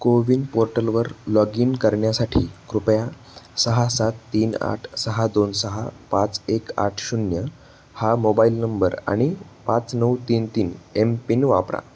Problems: none marked